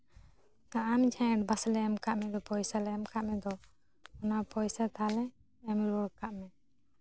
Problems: background sounds at intervals